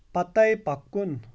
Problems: background sounds at intervals